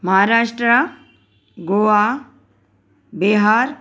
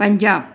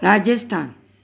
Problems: none marked